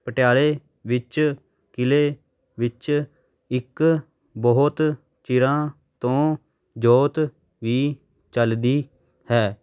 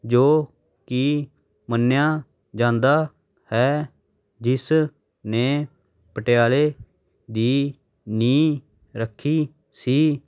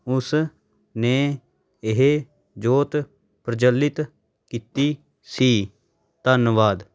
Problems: none marked